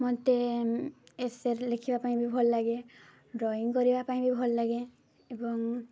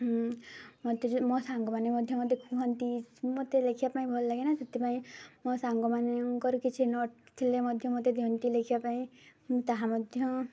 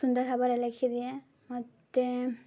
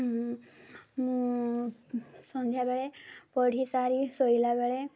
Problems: low volume